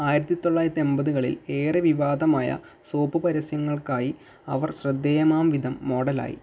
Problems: none marked